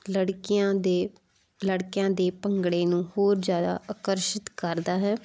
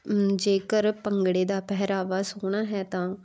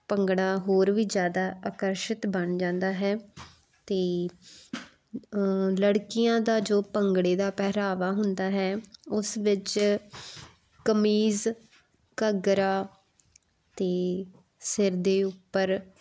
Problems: constant background noise